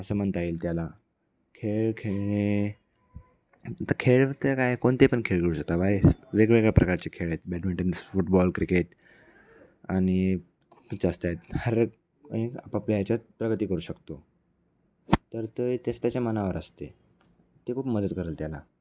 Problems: background sounds at intervals, background conversations at intervals